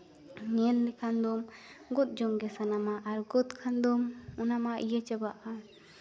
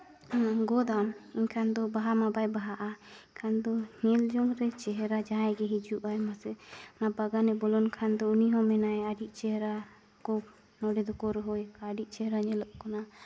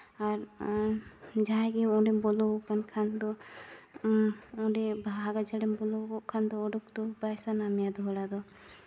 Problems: none marked